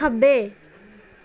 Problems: background conversations at intervals